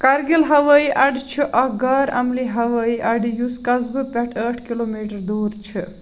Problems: constant background noise